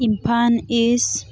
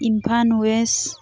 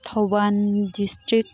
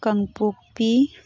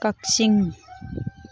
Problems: constant background noise, background conversations at intervals